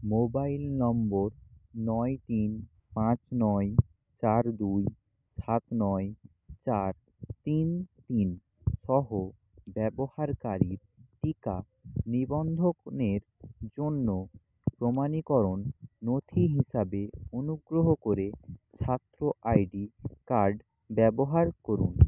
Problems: none marked